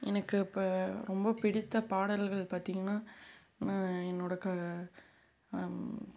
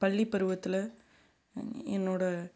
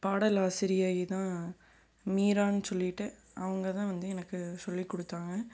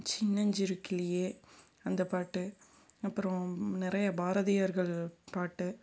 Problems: background sounds at intervals